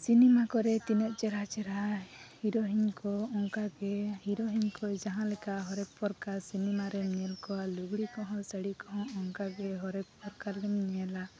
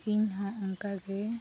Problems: none marked